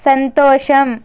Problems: constant background noise